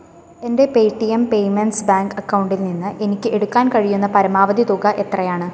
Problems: constant background noise